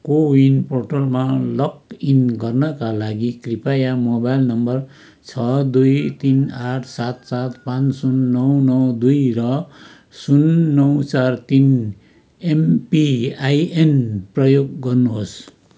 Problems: none marked